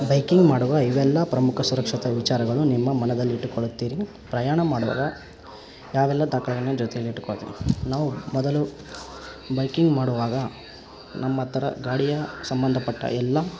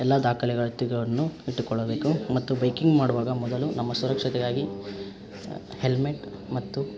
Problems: background sounds at intervals